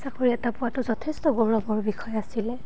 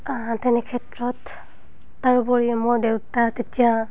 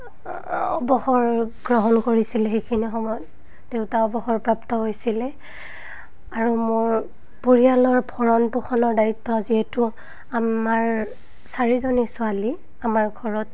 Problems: none marked